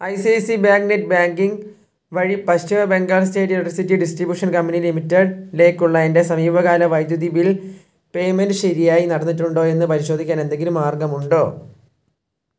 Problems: low volume